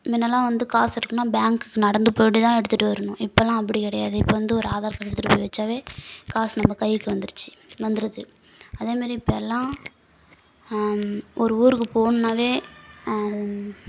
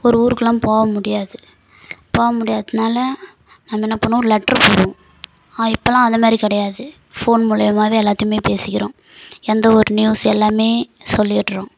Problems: constant background noise